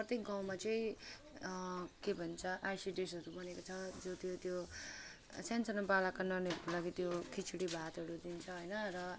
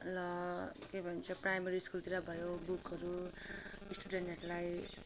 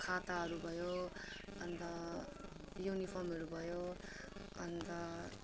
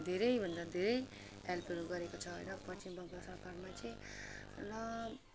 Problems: constant background noise